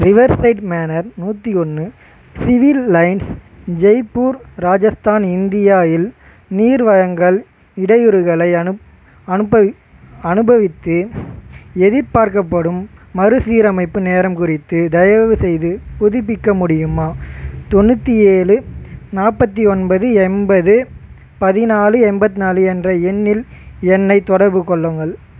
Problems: constant background noise